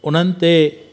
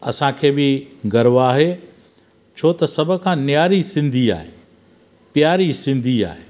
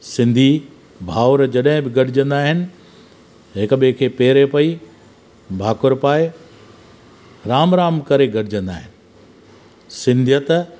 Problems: constant background noise